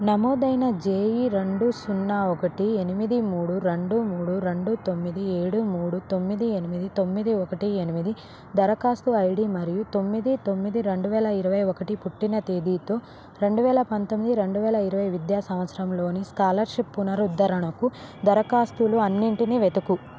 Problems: constant background noise